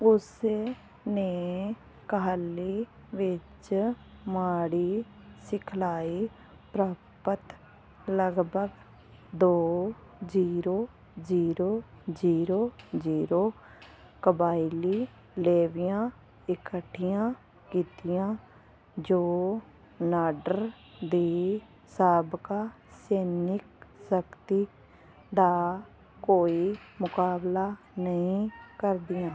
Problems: constant background noise